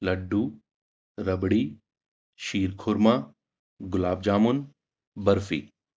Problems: background sounds at intervals